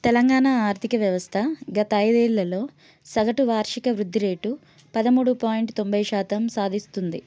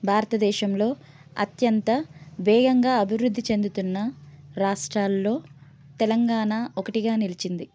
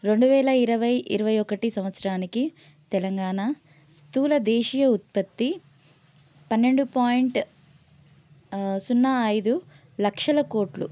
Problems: none marked